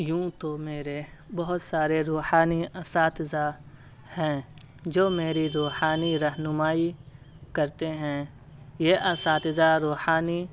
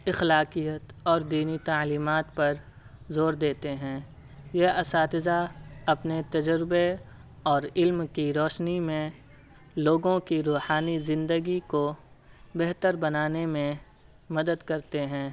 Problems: none marked